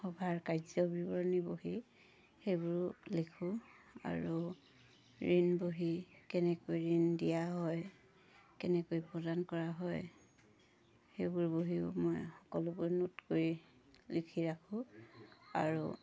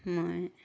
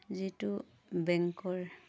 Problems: constant background noise